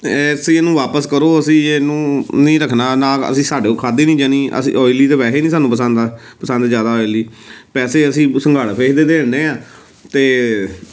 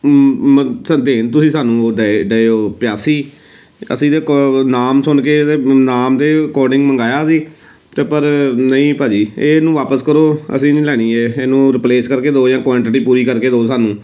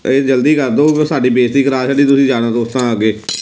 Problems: none marked